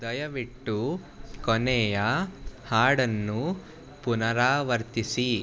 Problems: none marked